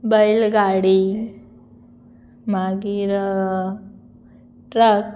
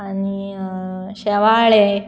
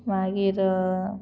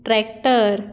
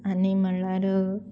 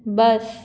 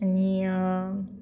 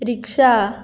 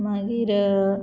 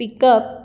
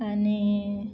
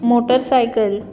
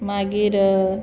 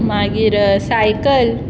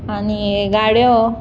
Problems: background sounds at intervals